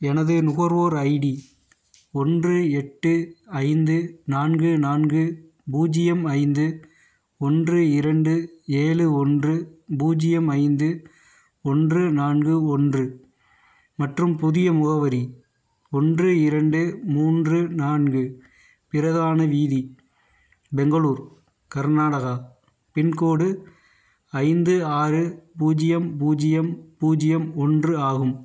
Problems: none marked